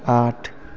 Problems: none marked